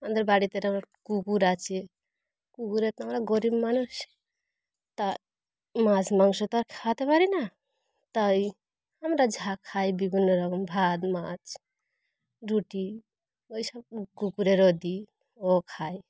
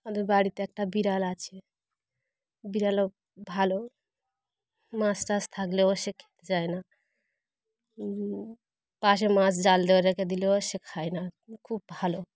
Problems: none marked